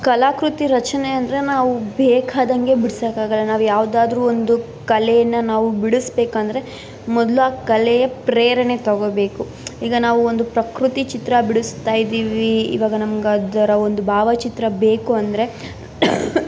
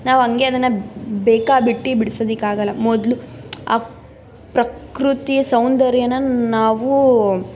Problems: background sounds at intervals